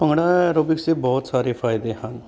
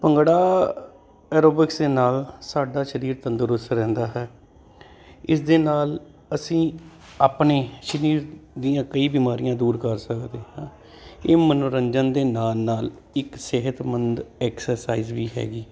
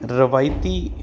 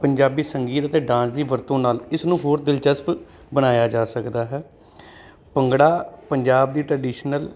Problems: constant background noise